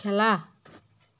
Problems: background sounds at intervals